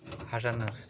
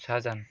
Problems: none marked